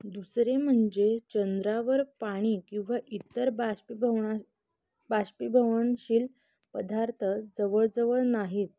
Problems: constant background noise